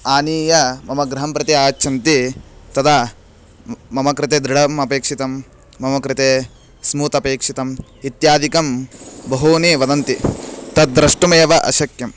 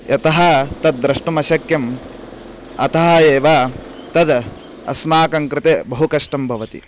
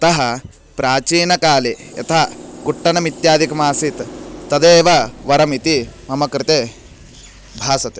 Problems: constant background noise